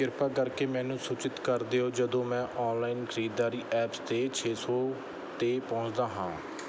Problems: none marked